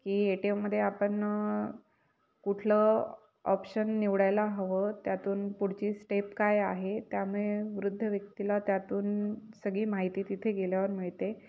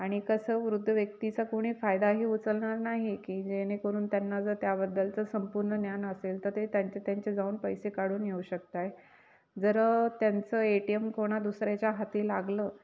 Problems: none marked